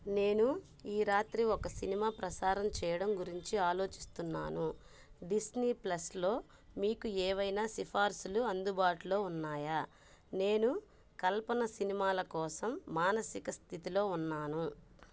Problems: none marked